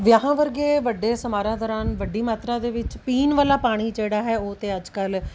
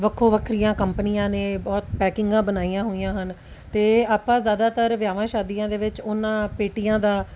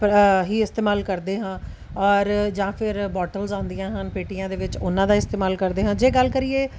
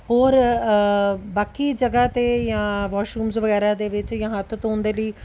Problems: none marked